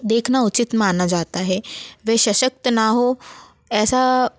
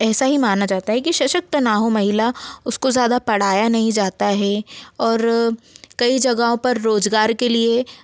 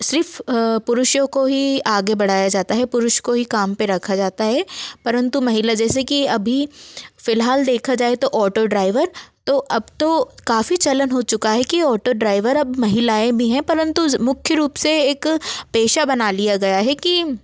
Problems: none marked